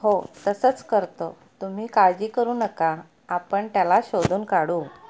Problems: none marked